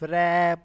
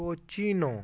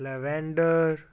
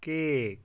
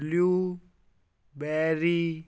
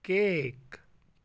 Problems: background sounds at intervals